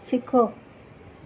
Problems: constant background noise, echo